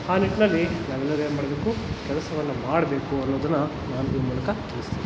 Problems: constant background noise